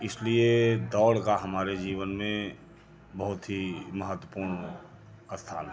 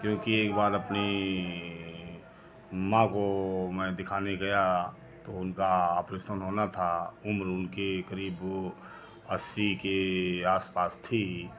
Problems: echo